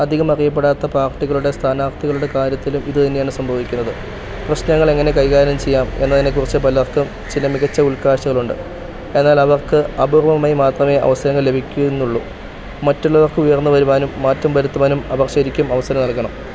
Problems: constant background noise